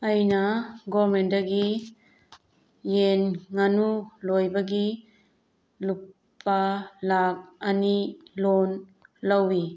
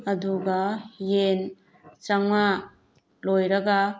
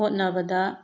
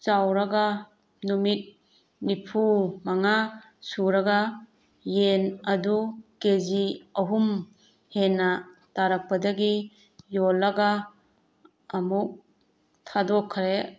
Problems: background sounds at intervals